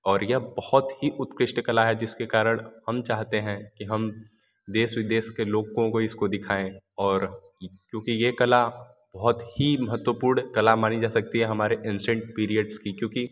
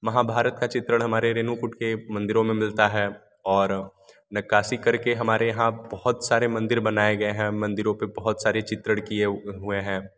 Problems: none marked